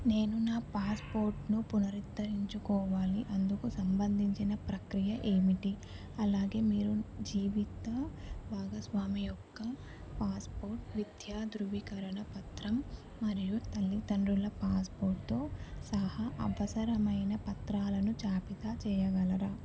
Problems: constant background noise, low volume